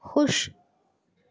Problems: background sounds at intervals